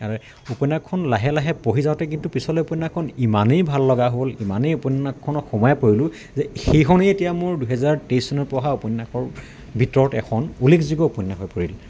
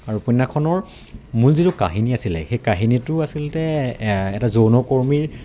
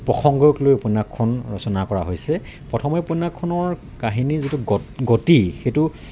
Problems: constant background noise, background conversations at intervals